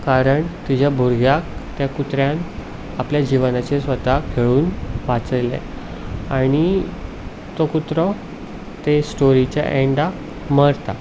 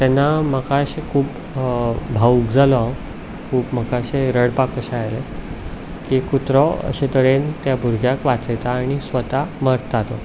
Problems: background sounds at intervals